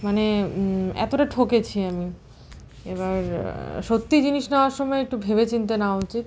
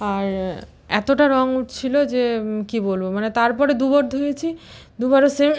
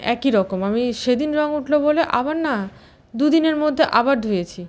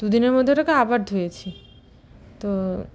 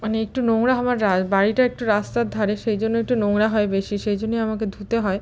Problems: constant background noise